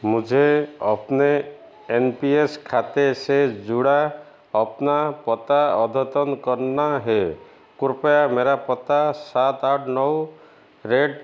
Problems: constant background noise, echo